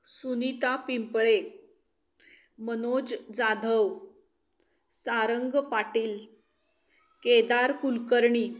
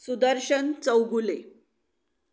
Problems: background sounds at intervals